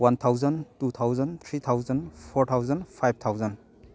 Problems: constant background noise